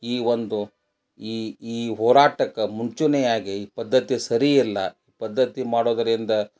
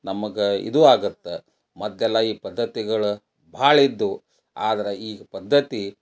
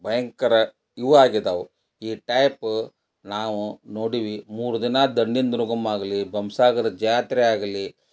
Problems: none marked